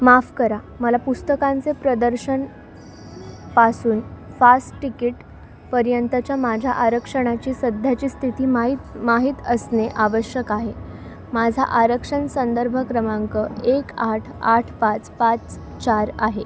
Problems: none marked